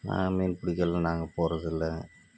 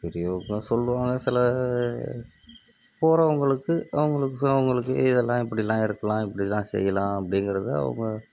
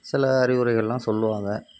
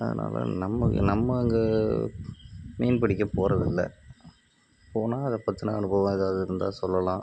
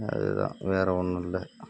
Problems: background sounds at intervals, low volume